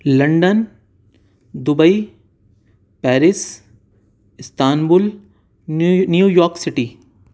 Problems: none marked